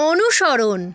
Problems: constant background noise, continuous background conversations